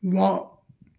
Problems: background sounds at intervals